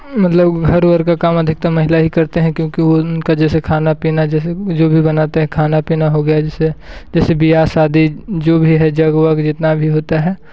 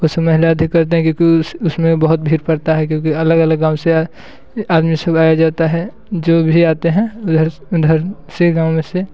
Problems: constant background noise